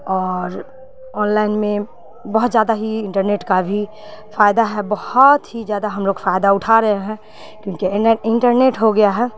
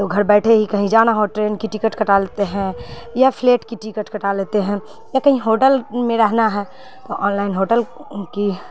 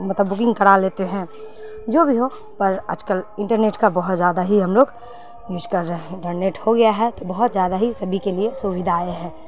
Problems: constant background noise